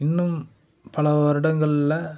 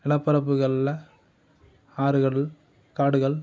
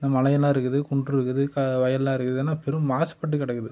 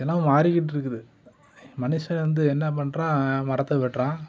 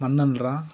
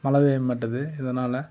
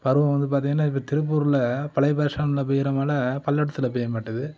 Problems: background conversations at intervals